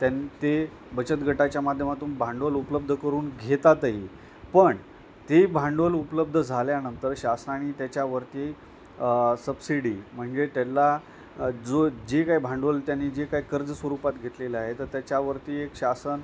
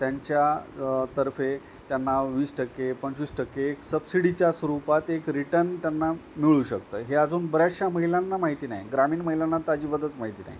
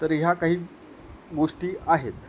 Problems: none marked